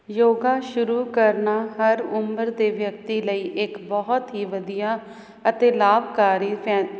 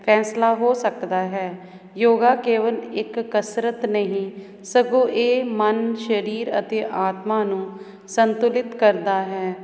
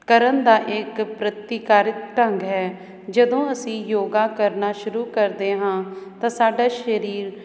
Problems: none marked